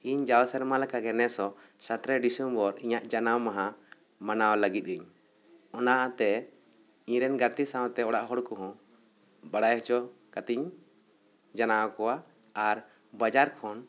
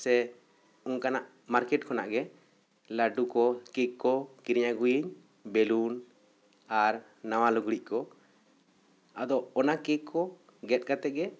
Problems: none marked